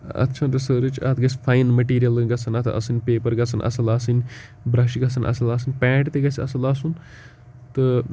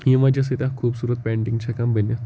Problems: background sounds at intervals